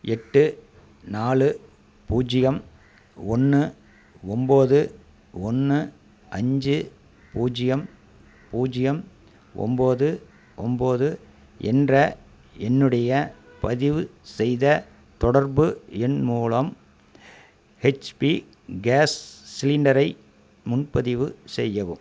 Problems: constant background noise